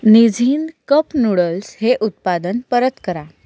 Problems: background sounds at intervals